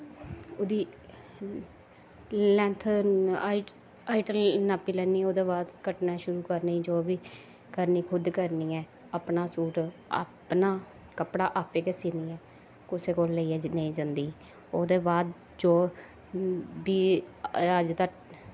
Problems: constant background noise, low volume